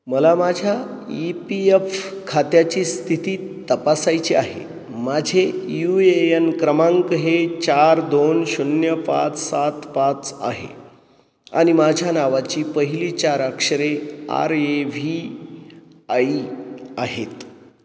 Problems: none marked